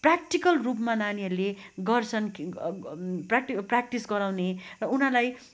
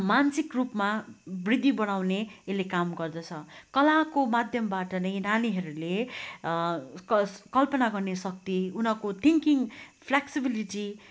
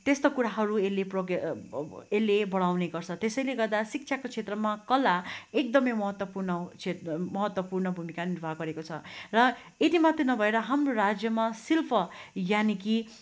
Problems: constant background noise